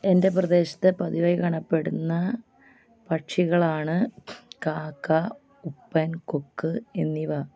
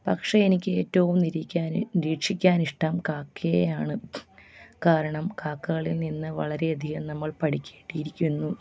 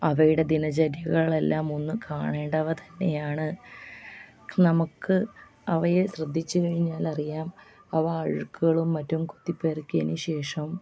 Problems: low volume